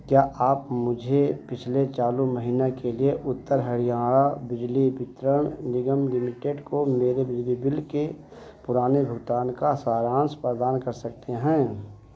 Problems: none marked